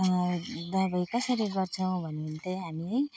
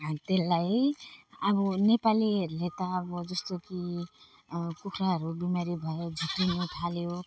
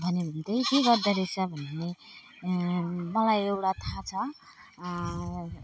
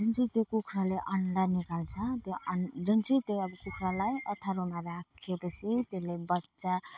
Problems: background sounds at intervals, background conversations at intervals